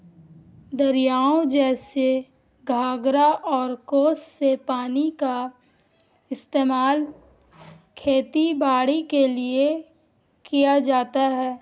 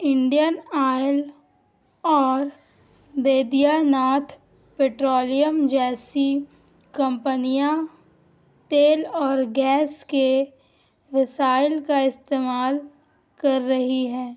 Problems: constant background noise